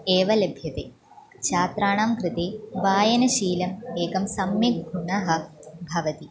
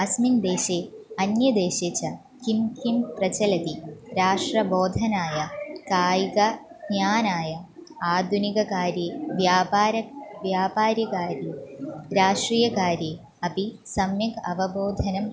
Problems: continuous background conversations